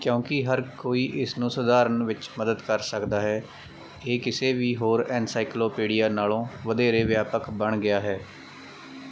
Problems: background sounds at intervals